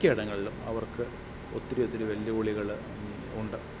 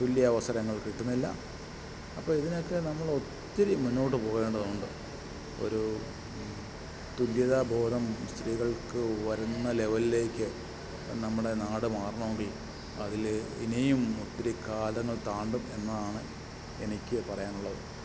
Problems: constant background noise, low volume